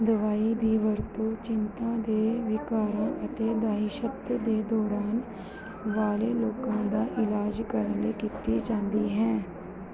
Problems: background sounds at intervals